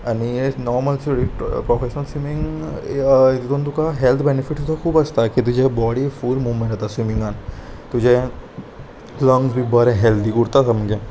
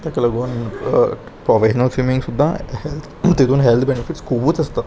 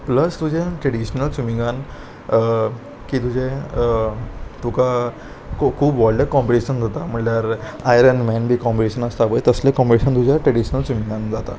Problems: constant background noise, background conversations at intervals